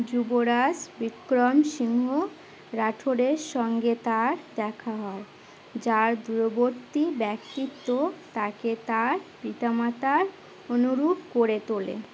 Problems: constant background noise